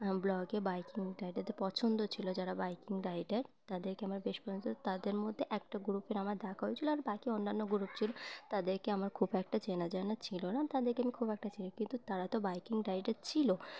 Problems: constant background noise, background conversations at intervals